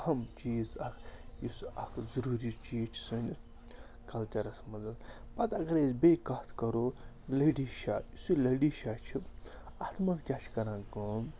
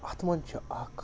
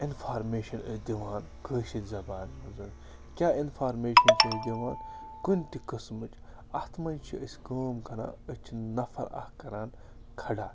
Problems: constant background noise